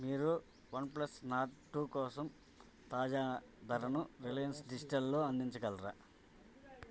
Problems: constant background noise, background conversations at intervals